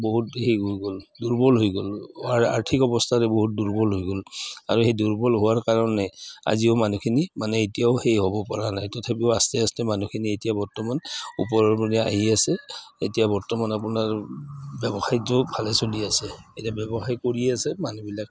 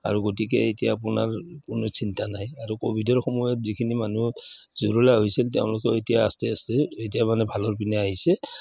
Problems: background sounds at intervals